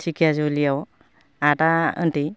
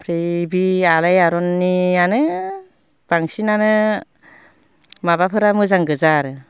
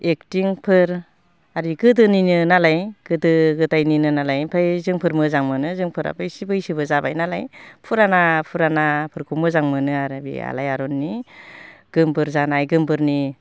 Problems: constant background noise